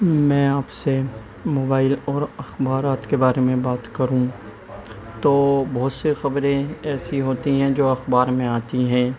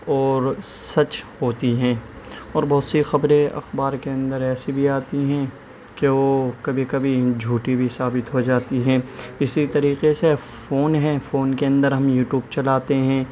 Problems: background sounds at intervals